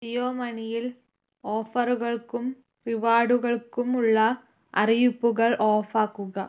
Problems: none marked